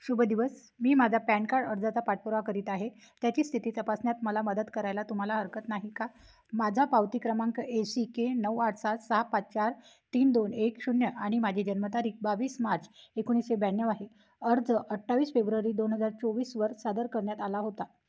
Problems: background sounds at intervals